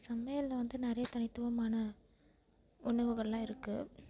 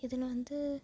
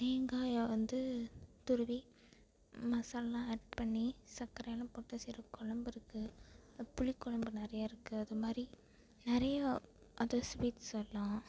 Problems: none marked